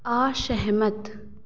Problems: constant background noise, echo